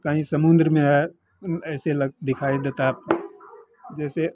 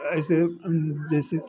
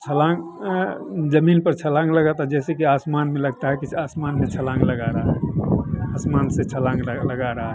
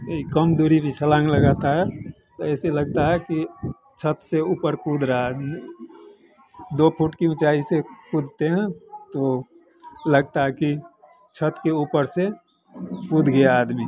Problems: constant background noise